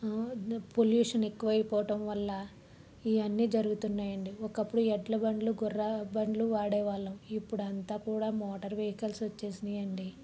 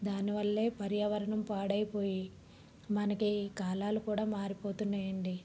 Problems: none marked